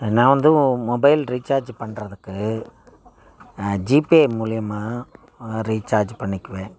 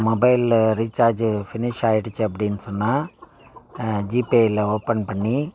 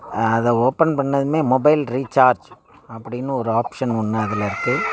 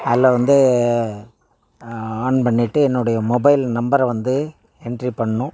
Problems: background sounds at intervals